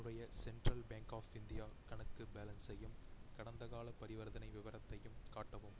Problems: low volume